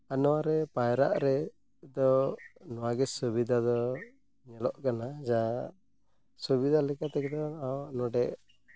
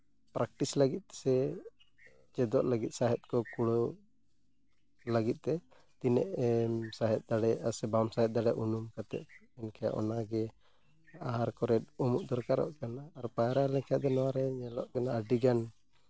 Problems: none marked